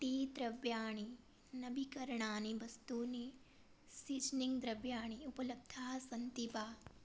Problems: low volume